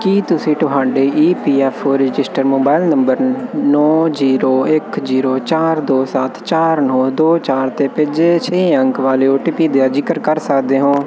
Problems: constant background noise